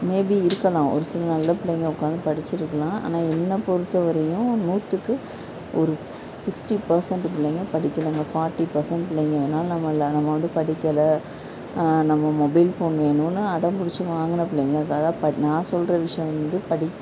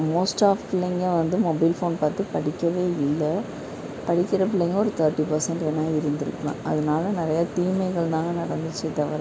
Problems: none marked